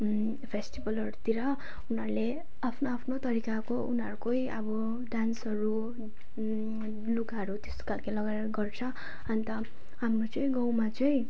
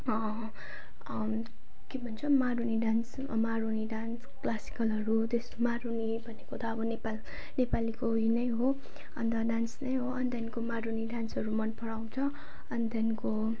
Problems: none marked